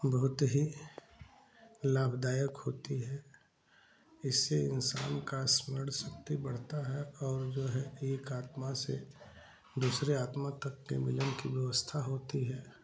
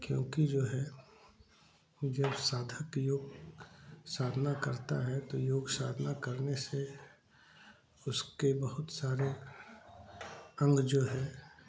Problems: background sounds at intervals, background conversations at intervals